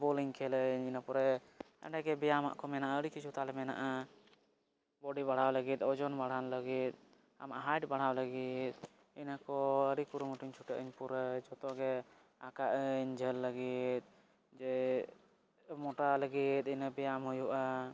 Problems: low volume